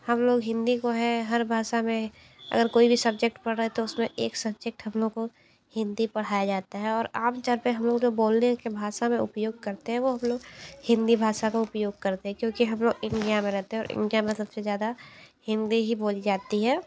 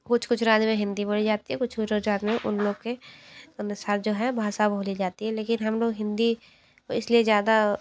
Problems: none marked